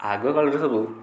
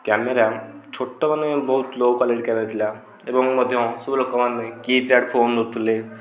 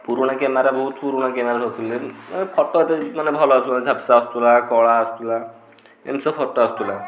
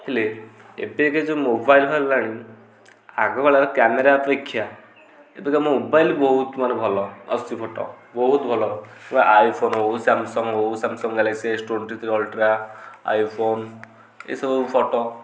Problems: background sounds at intervals, background conversations at intervals